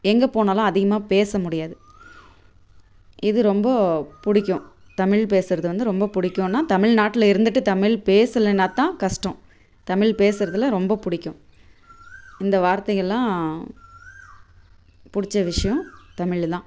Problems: background sounds at intervals